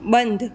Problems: constant background noise